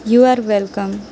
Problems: constant background noise